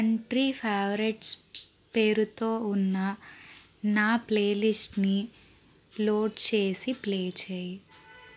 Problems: background sounds at intervals